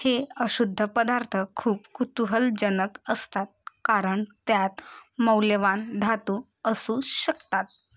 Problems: constant background noise